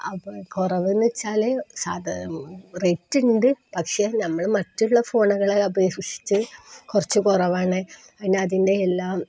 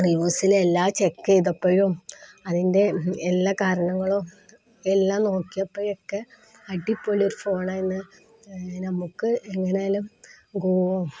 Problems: none marked